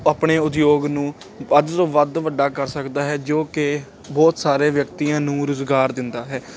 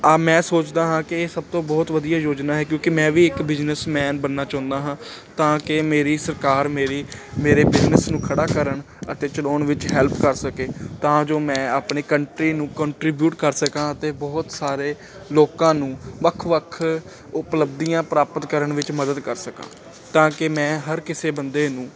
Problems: constant background noise